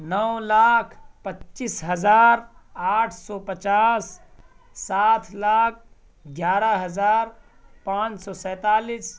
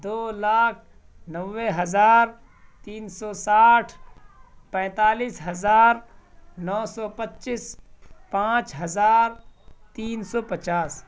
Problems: none marked